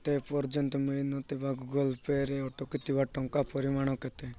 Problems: none marked